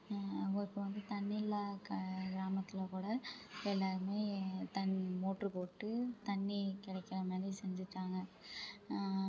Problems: constant background noise, low volume